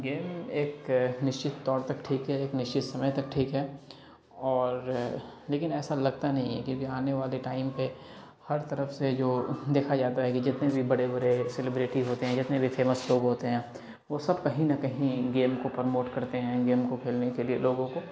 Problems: background sounds at intervals, background conversations at intervals